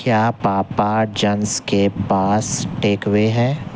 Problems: constant background noise